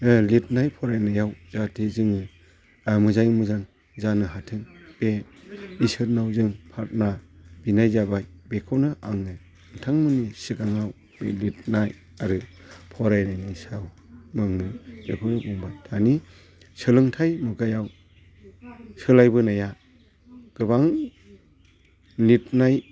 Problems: constant background noise